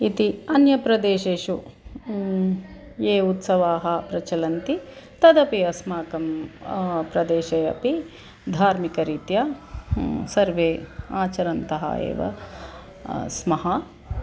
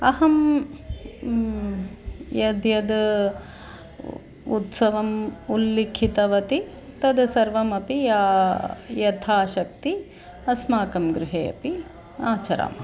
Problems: none marked